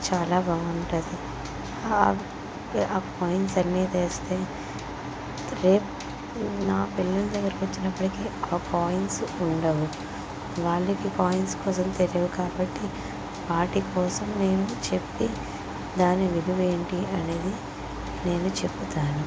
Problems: constant background noise